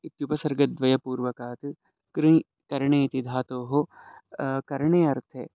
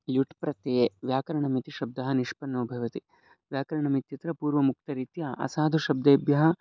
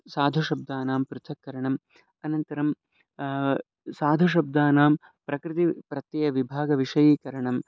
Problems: none marked